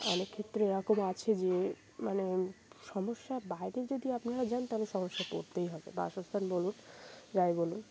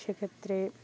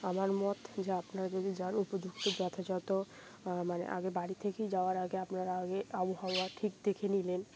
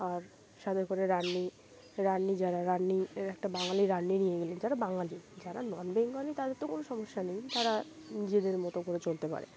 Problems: none marked